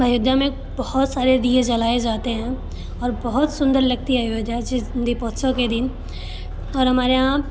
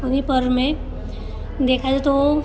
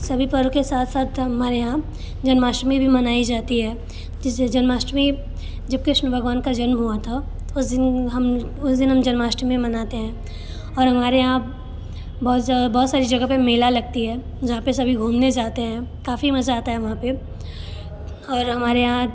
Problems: constant background noise